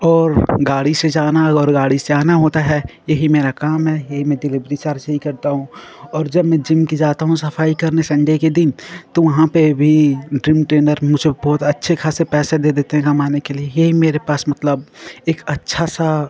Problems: continuous background conversations